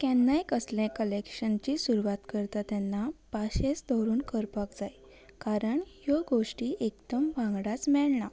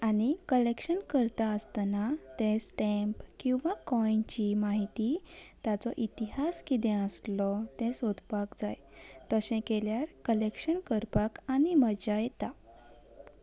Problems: none marked